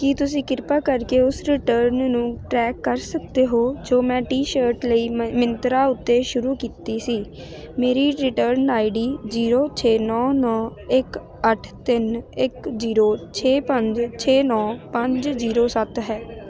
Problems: continuous background conversations